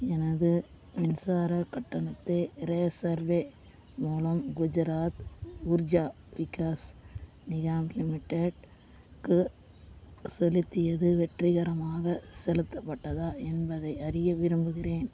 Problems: constant background noise